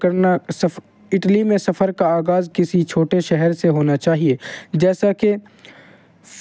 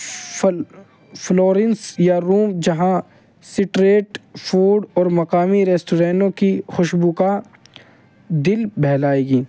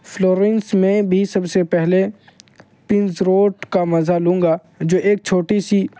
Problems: none marked